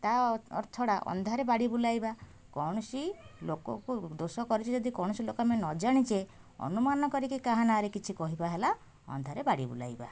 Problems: none marked